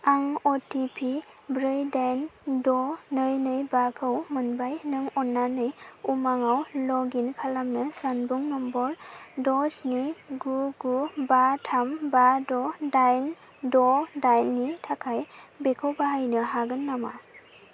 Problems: none marked